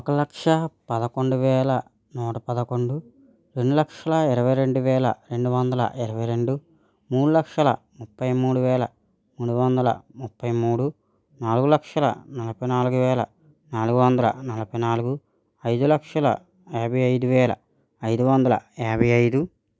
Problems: none marked